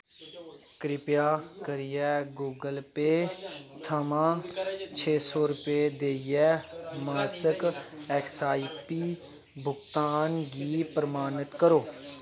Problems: none marked